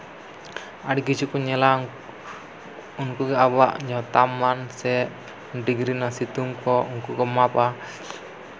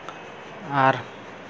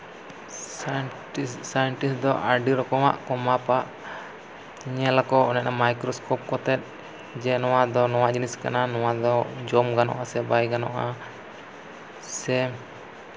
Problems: none marked